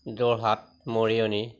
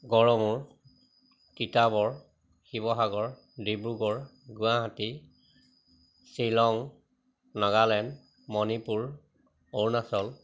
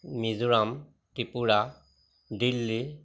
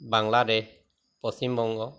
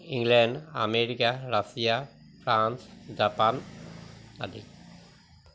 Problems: constant background noise